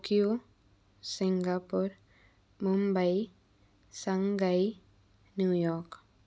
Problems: constant background noise